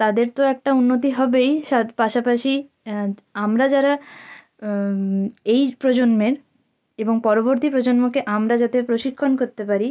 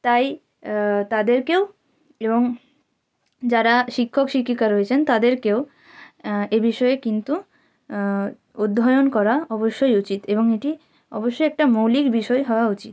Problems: background sounds at intervals